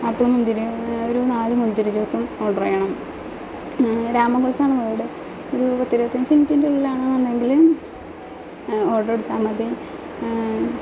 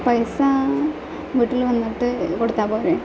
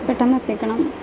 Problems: constant background noise, low volume